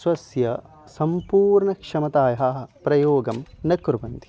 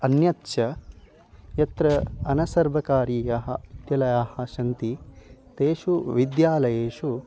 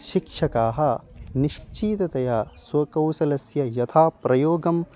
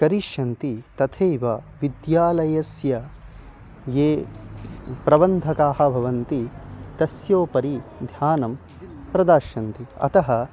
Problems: constant background noise, continuous background conversations